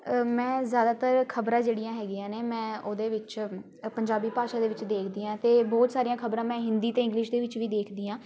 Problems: none marked